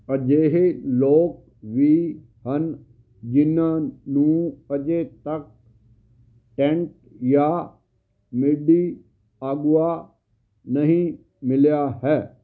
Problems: constant background noise